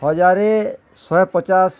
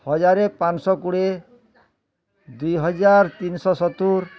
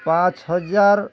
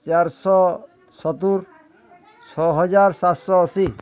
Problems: none marked